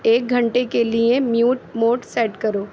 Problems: constant background noise